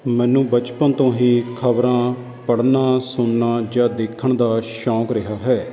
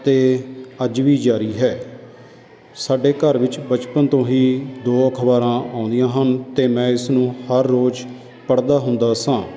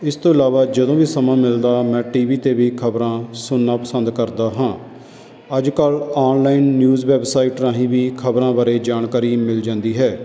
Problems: constant background noise